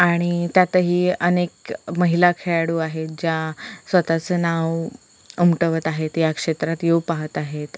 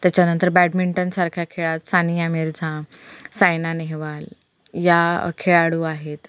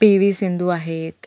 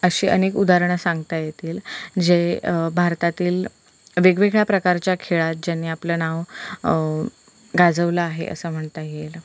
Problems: constant background noise